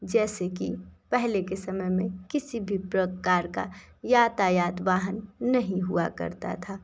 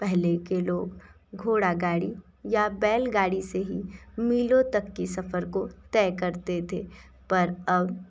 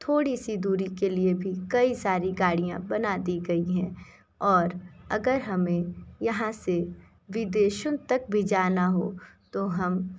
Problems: background sounds at intervals